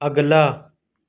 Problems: constant background noise